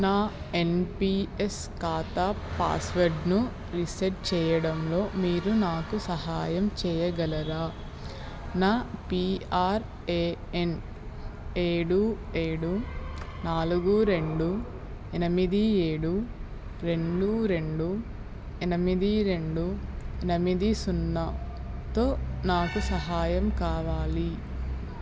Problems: constant background noise